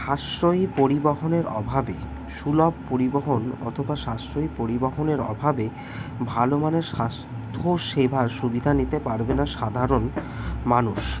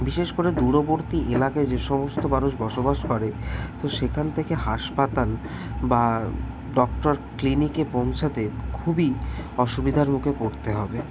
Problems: none marked